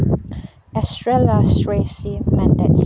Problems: low volume